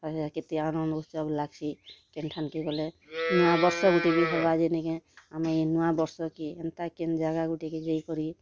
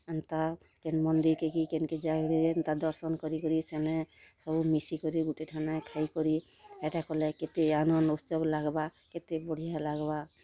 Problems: constant background noise, continuous background conversations